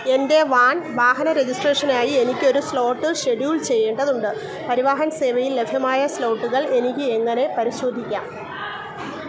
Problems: constant background noise